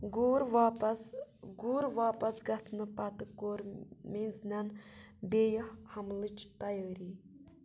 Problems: low volume